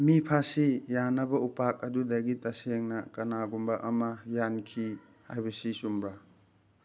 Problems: background sounds at intervals